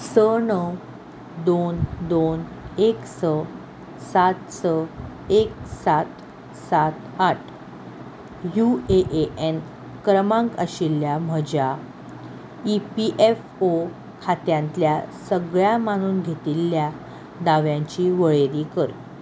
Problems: none marked